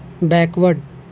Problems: constant background noise